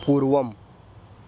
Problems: background sounds at intervals